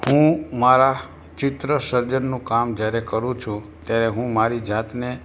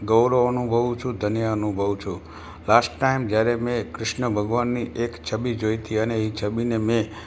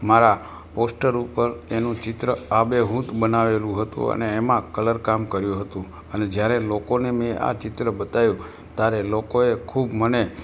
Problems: background sounds at intervals